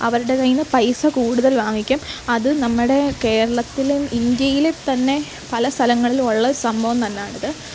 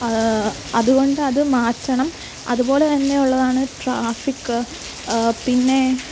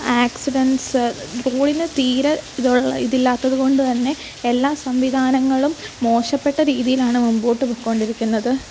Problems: constant background noise